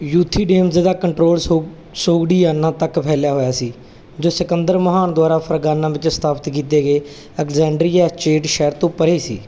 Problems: constant background noise